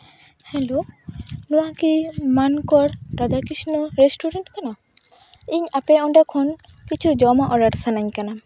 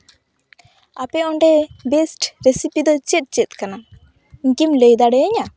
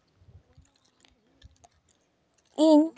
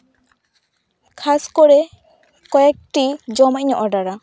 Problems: background sounds at intervals